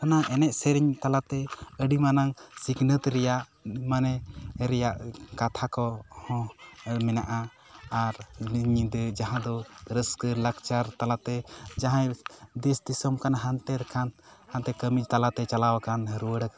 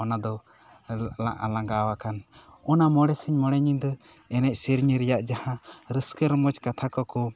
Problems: none marked